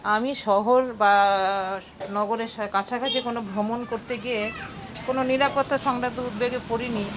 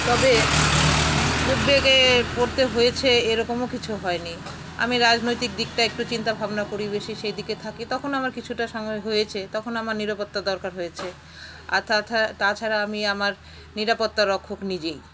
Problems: constant background noise